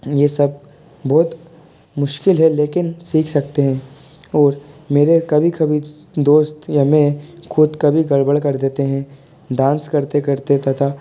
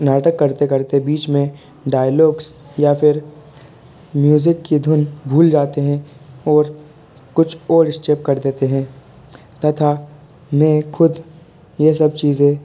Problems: constant background noise, continuous background conversations